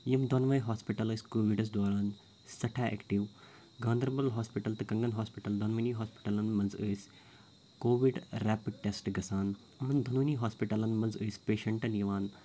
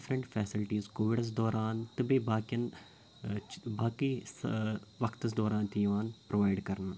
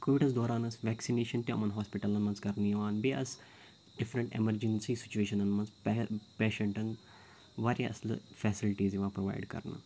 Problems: background sounds at intervals, low volume